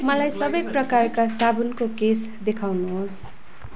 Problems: none marked